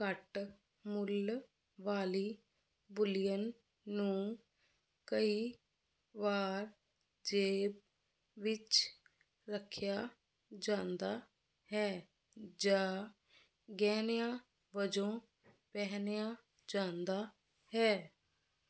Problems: constant background noise